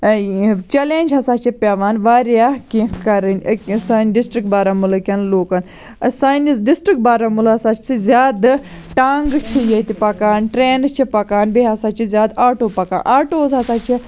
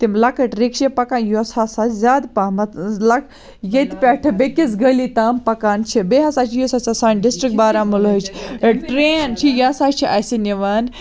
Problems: none marked